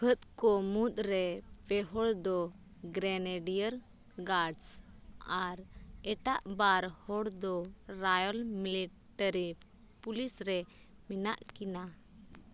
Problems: none marked